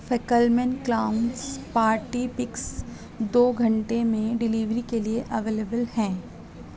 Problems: constant background noise, low volume